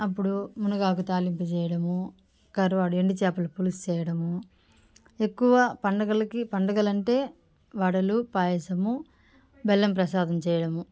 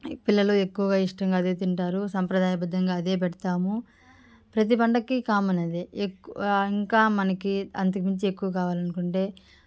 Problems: background sounds at intervals, background conversations at intervals